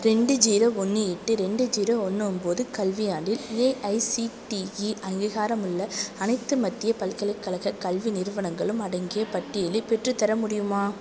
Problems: none marked